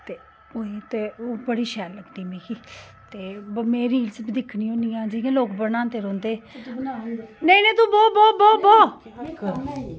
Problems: background conversations at intervals